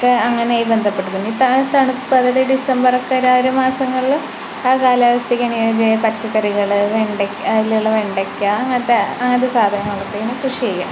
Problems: constant background noise